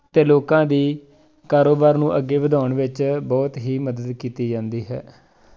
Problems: background conversations at intervals